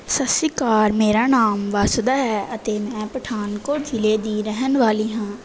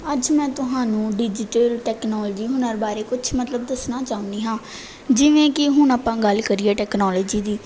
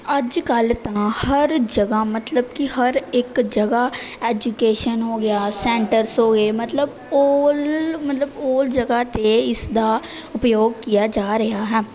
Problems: background sounds at intervals